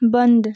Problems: background sounds at intervals